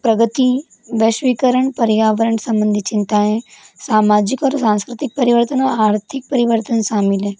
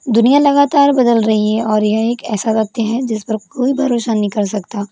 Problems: constant background noise